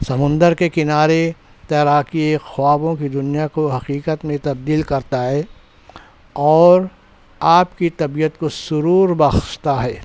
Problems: none marked